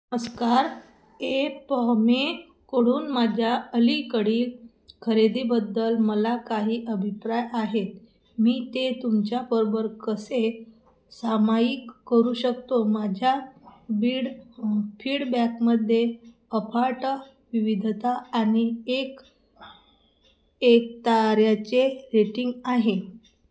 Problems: none marked